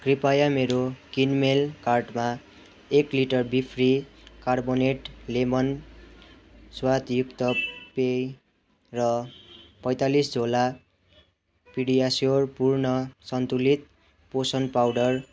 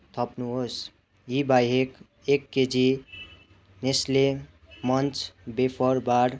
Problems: constant background noise, continuous background conversations